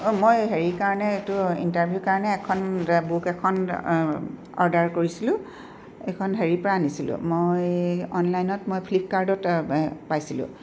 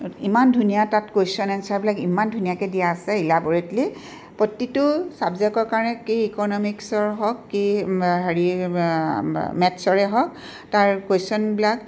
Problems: background sounds at intervals